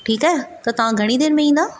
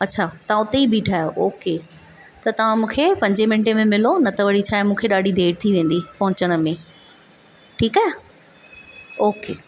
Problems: constant background noise